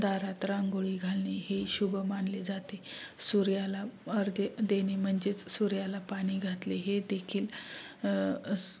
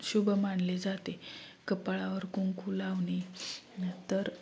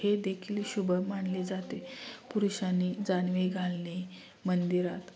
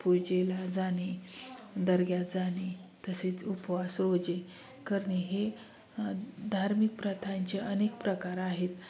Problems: none marked